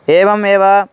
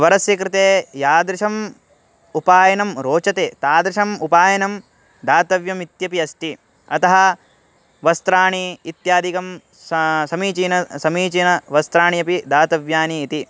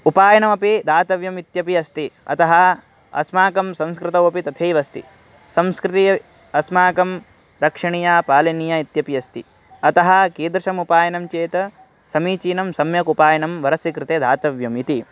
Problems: constant background noise